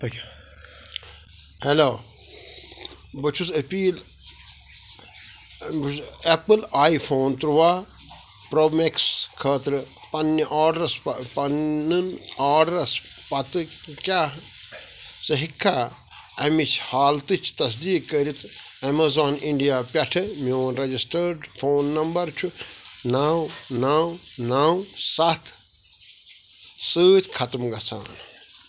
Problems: constant background noise